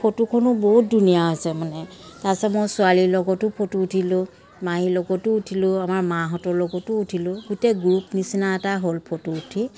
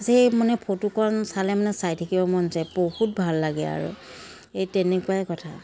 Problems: constant background noise